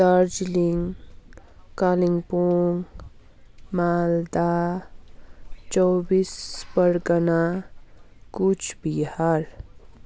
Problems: background sounds at intervals